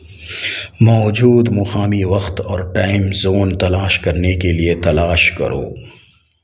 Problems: background sounds at intervals